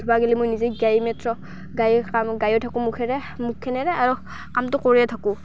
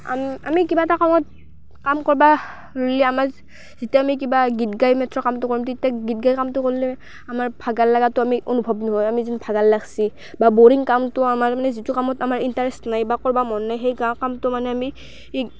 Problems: constant background noise